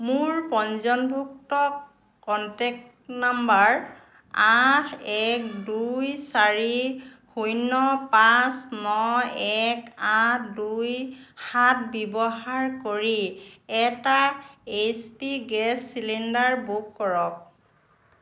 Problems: constant background noise